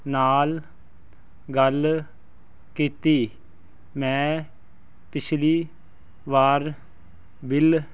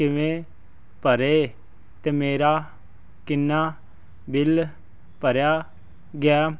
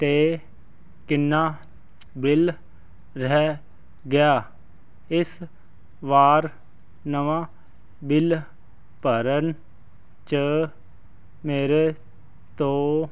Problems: none marked